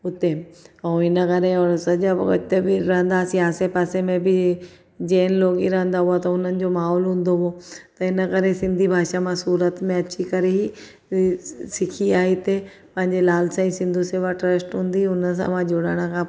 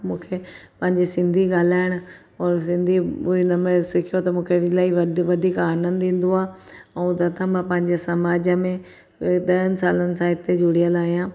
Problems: none marked